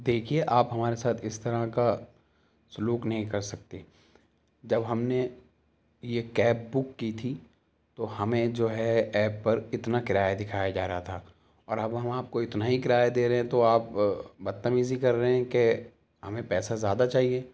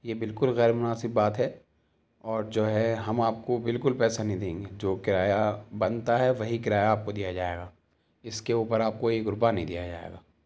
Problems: none marked